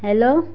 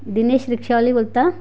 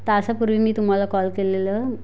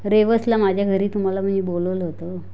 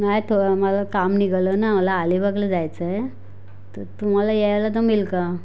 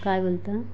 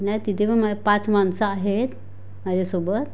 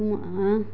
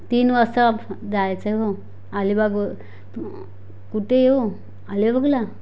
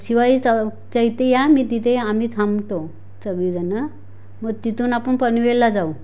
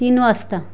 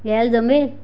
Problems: constant background noise